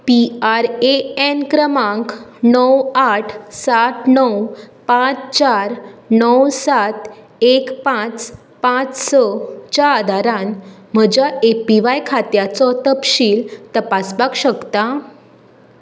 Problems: none marked